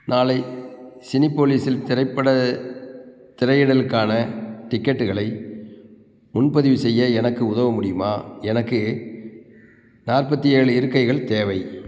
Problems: background sounds at intervals